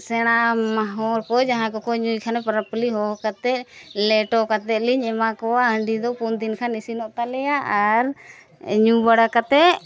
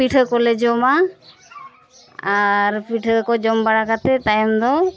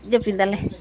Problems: constant background noise, continuous background conversations